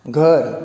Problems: none marked